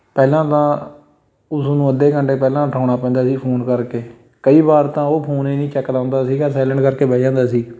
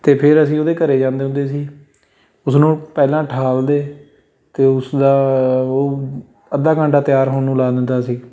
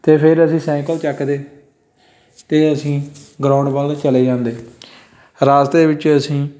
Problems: background sounds at intervals